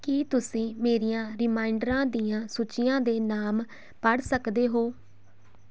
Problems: constant background noise